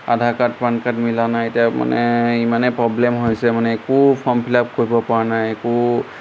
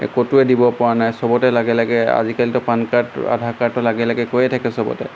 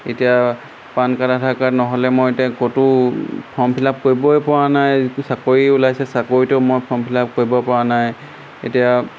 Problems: constant background noise